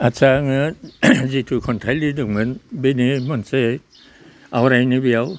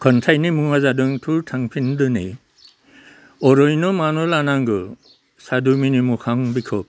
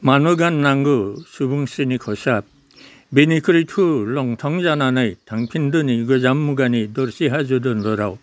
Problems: constant background noise